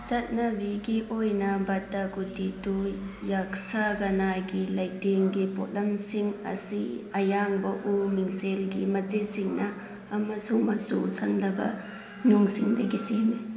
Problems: constant background noise